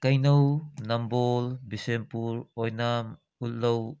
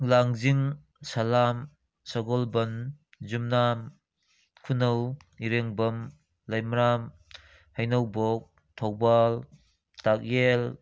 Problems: none marked